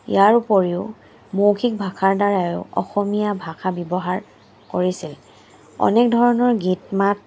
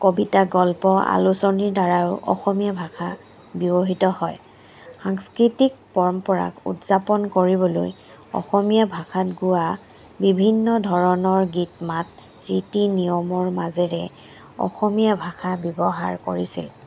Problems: background sounds at intervals